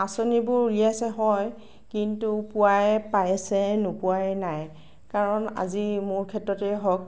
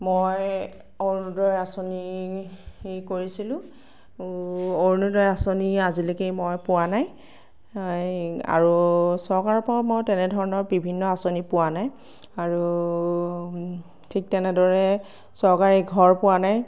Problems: none marked